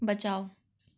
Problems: background sounds at intervals